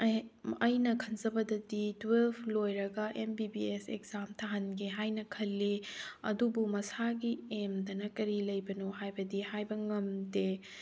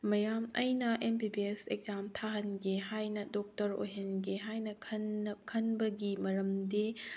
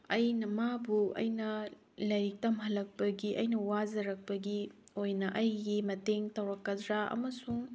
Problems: none marked